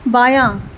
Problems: background sounds at intervals